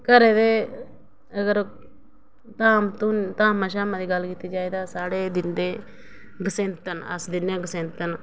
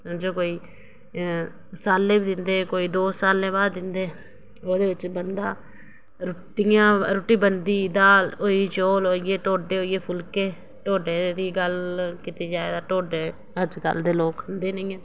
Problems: none marked